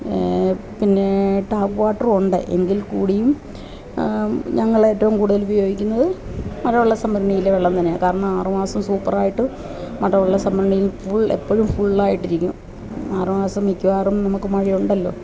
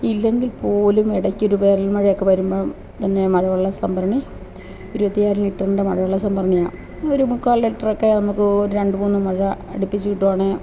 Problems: constant background noise, low volume